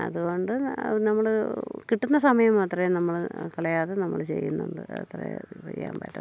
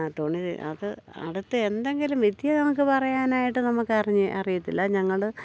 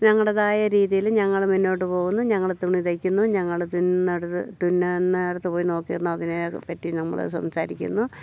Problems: low volume